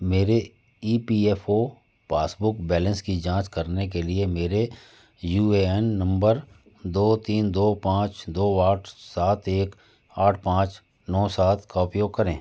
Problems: constant background noise